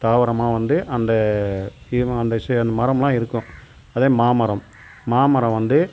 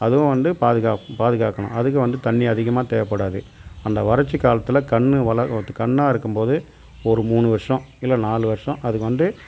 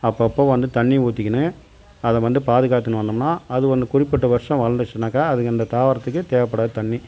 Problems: constant background noise